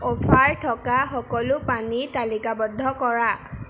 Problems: none marked